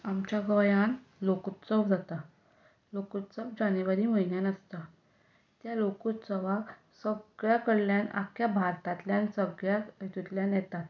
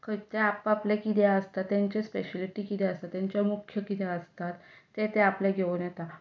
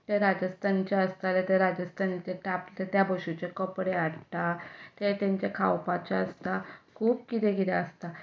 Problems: none marked